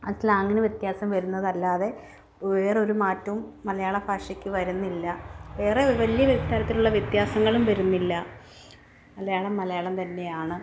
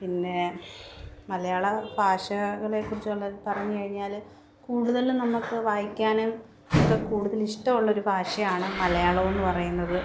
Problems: background sounds at intervals